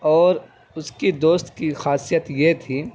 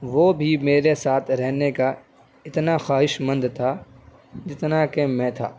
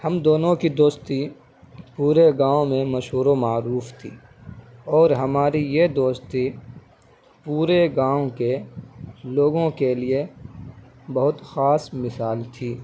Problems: none marked